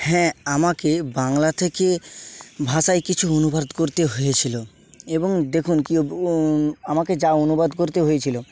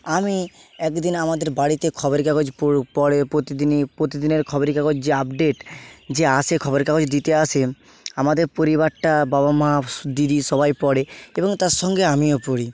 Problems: constant background noise